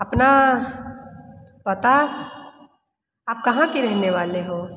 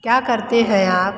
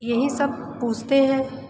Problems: background sounds at intervals, continuous background conversations, echo